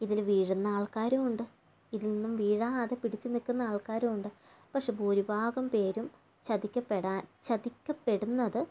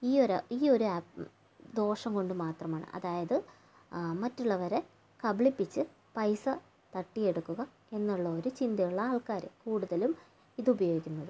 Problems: low volume